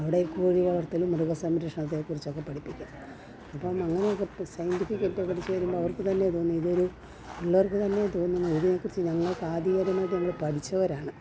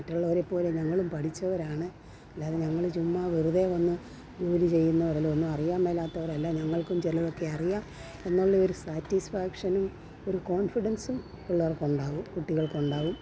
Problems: low volume